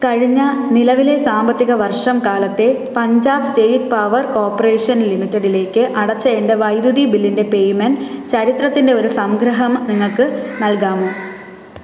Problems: constant background noise